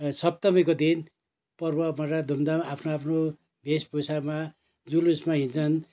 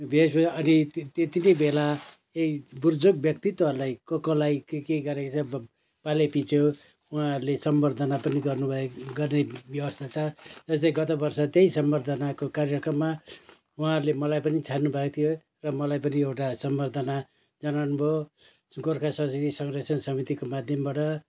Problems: none marked